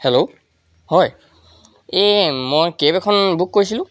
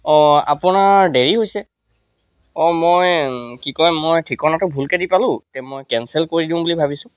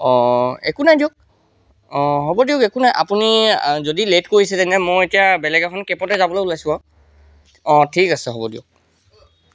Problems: none marked